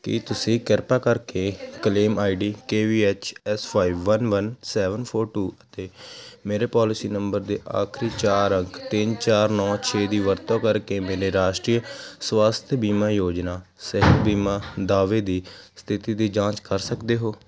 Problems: constant background noise